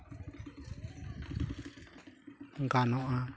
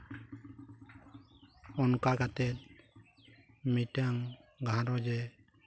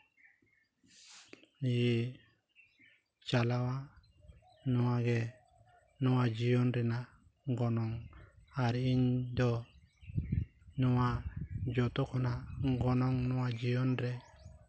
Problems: none marked